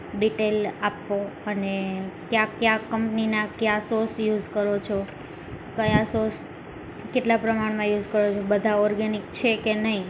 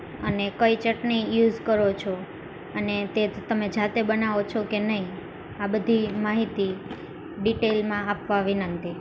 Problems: constant background noise